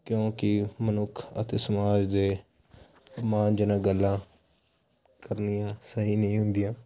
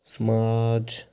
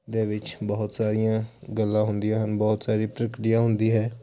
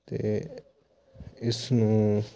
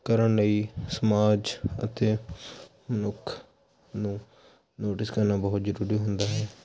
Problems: constant background noise